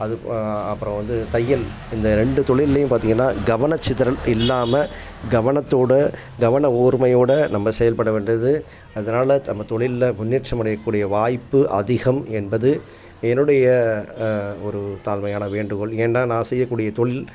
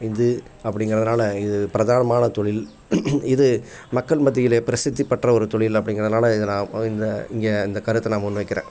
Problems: background sounds at intervals, background conversations at intervals